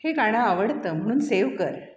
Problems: none marked